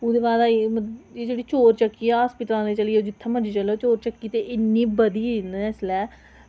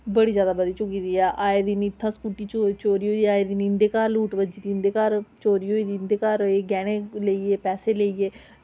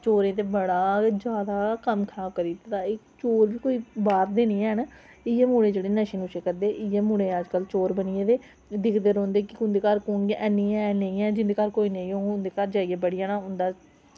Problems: none marked